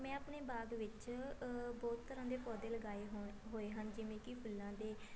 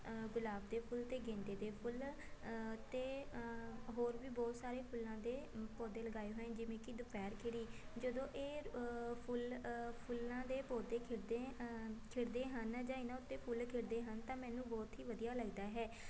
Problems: continuous background conversations